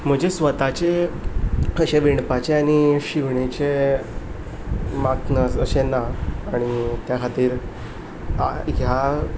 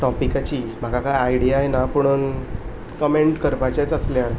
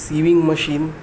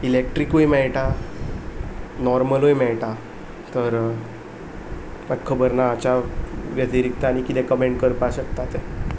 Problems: none marked